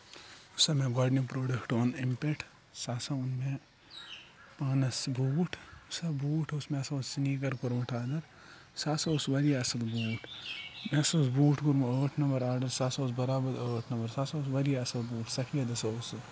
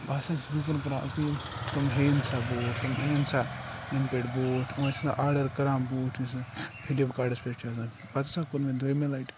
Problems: background sounds at intervals, low volume